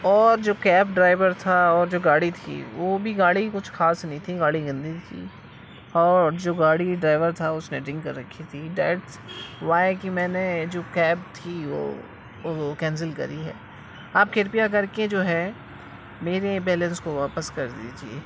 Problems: constant background noise